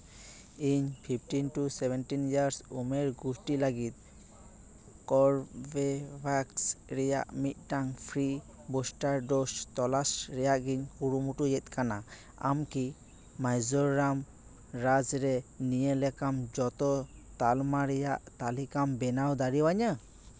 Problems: background sounds at intervals